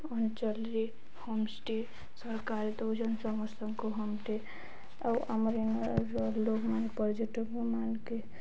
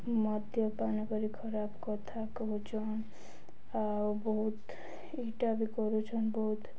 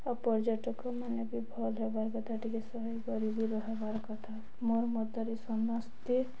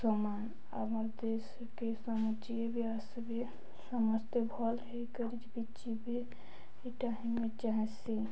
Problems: none marked